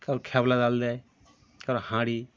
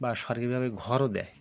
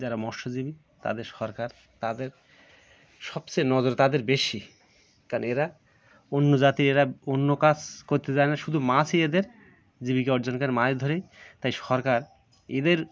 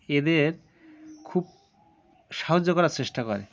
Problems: none marked